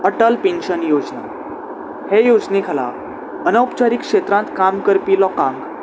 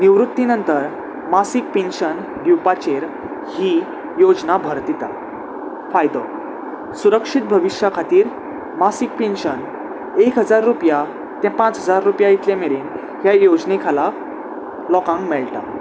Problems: constant background noise